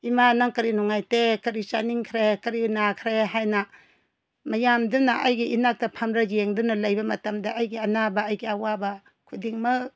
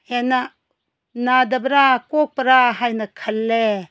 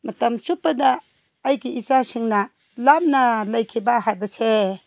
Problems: none marked